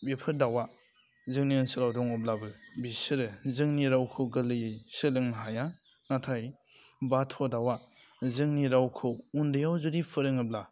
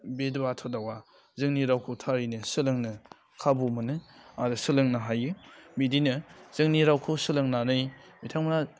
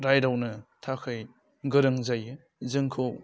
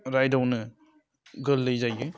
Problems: low volume